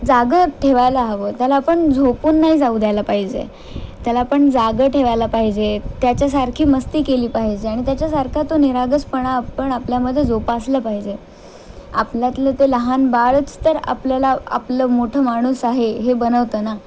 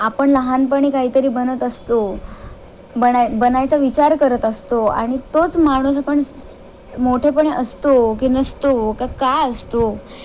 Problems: constant background noise